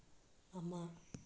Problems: low volume